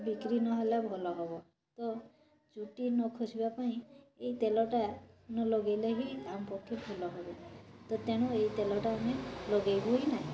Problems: constant background noise, continuous background conversations